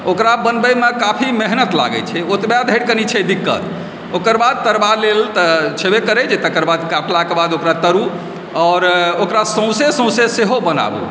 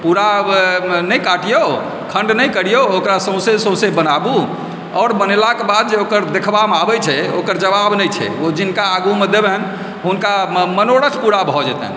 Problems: background sounds at intervals